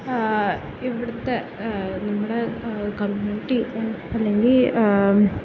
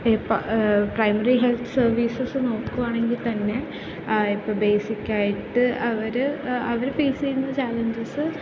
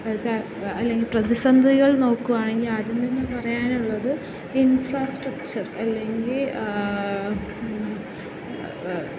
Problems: constant background noise